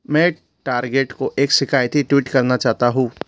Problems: constant background noise